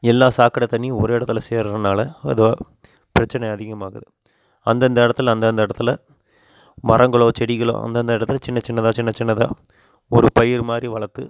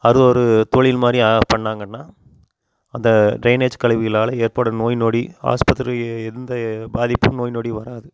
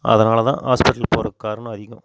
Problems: constant background noise